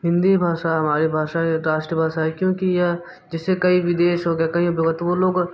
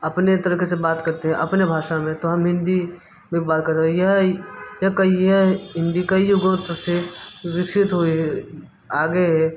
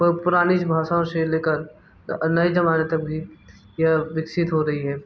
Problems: none marked